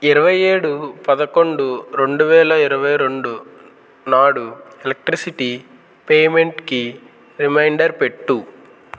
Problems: constant background noise